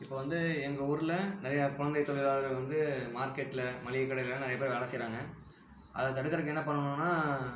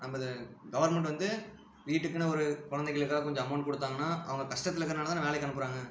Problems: low volume